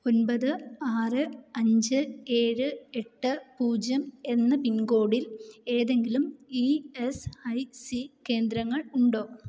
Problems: low volume